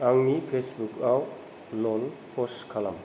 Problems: low volume